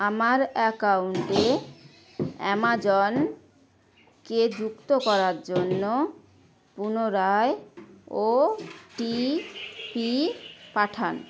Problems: constant background noise